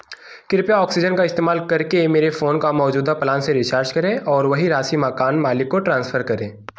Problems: none marked